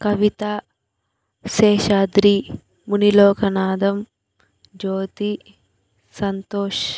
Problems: none marked